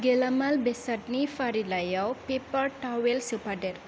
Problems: low volume